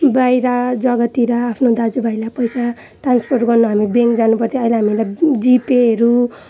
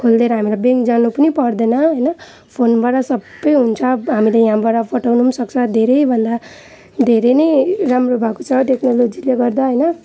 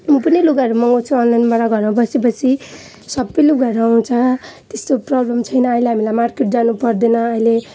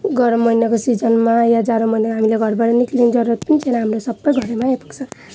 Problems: background sounds at intervals